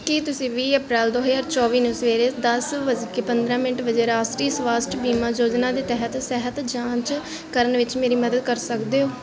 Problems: constant background noise